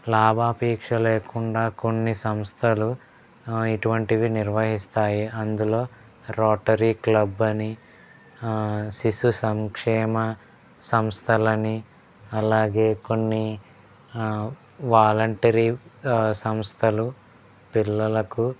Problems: background sounds at intervals, background conversations at intervals